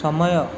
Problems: constant background noise